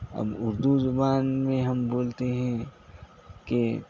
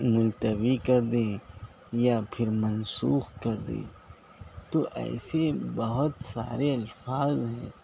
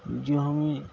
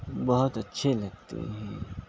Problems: constant background noise